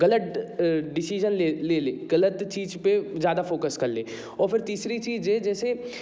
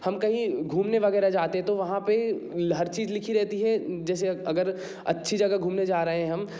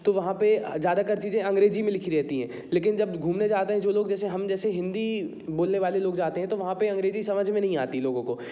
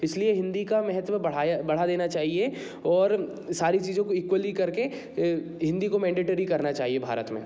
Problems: background sounds at intervals